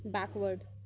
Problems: constant background noise, low volume